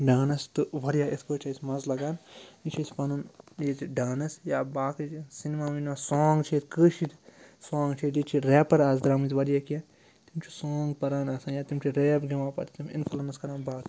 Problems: background sounds at intervals